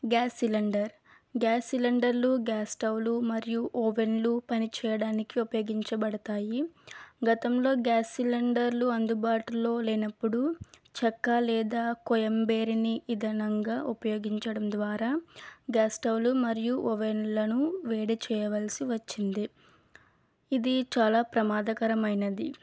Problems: none marked